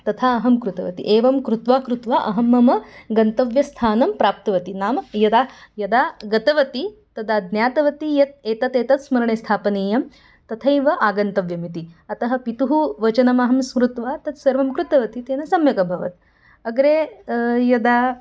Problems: none marked